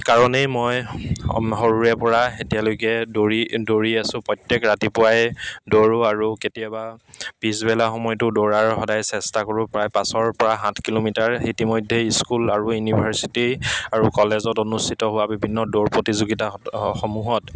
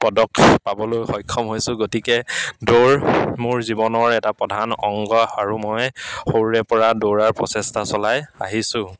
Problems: background sounds at intervals, background conversations at intervals